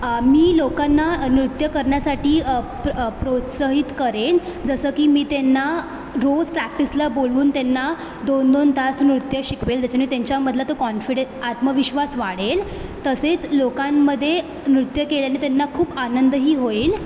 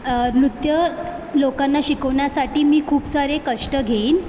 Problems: constant background noise, background conversations at intervals